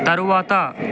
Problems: constant background noise